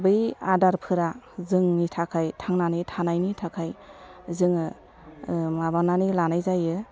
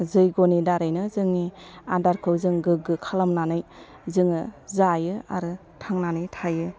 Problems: low volume